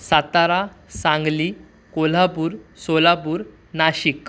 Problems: background sounds at intervals